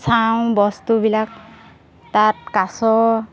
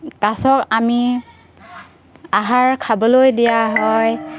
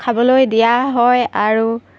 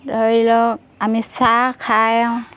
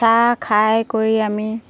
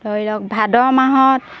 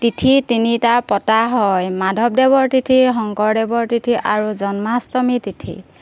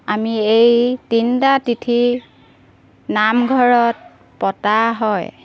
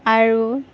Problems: background sounds at intervals